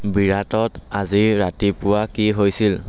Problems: constant background noise